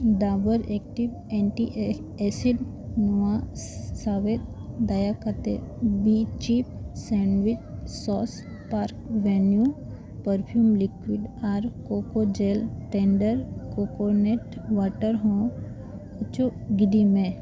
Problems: constant background noise